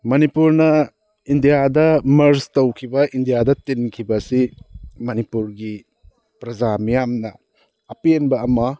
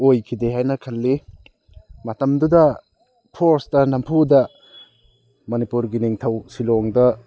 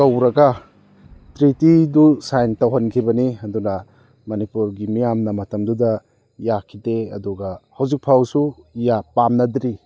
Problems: none marked